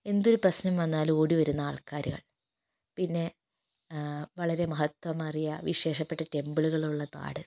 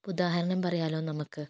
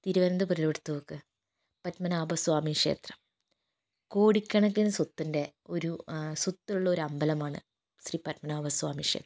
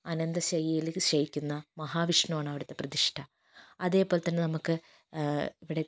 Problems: low volume